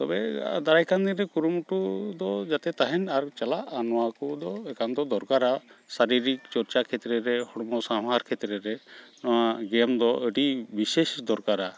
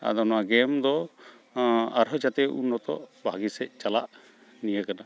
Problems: none marked